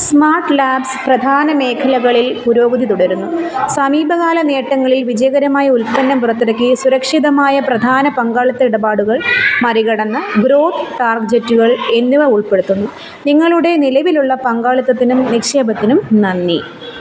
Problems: background sounds at intervals